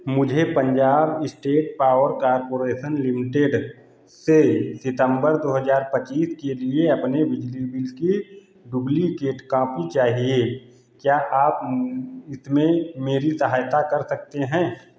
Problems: none marked